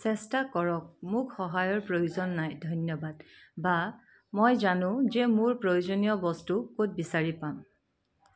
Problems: none marked